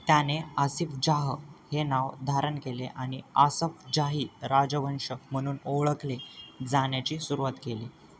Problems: none marked